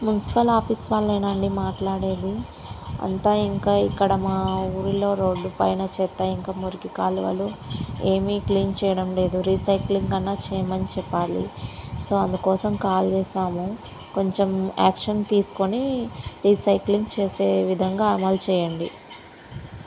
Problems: background sounds at intervals